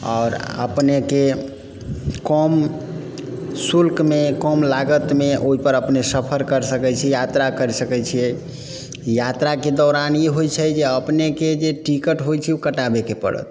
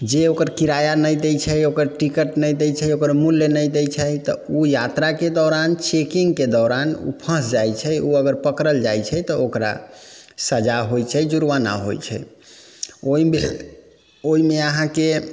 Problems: background sounds at intervals